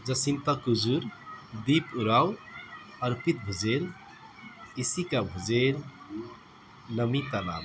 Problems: constant background noise